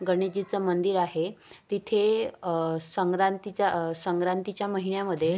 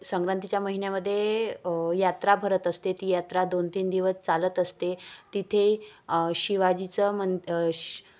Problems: constant background noise